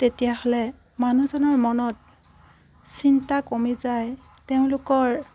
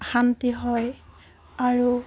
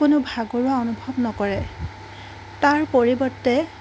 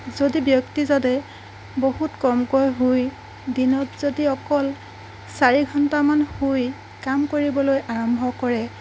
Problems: background sounds at intervals